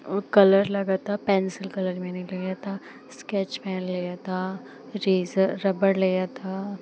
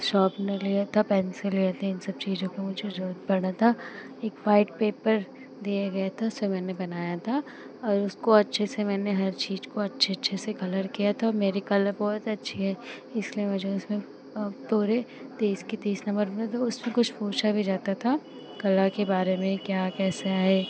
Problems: none marked